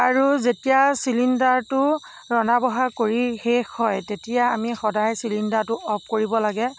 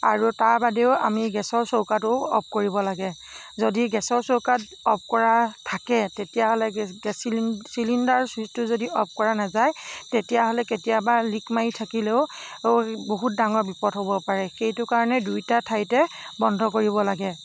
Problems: none marked